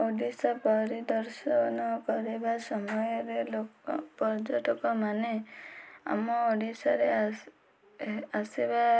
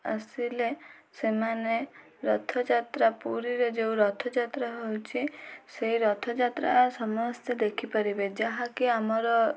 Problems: none marked